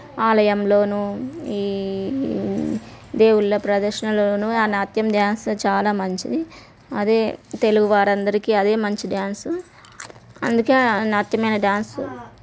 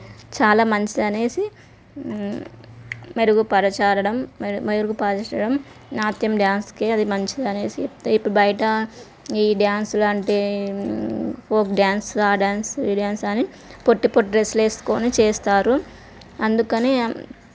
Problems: background conversations at intervals